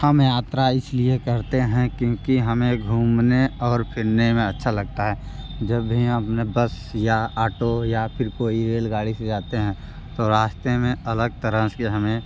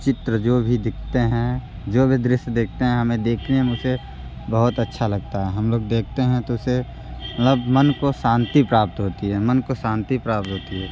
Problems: constant background noise